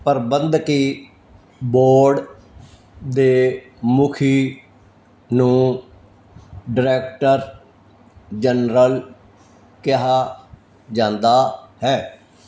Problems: none marked